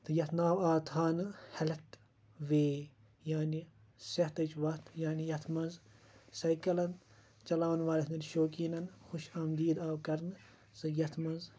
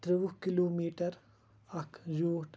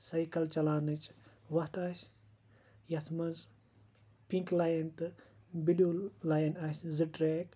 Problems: constant background noise